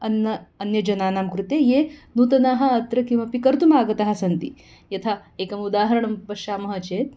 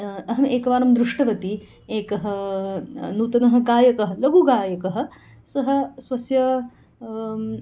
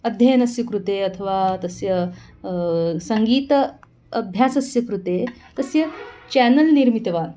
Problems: none marked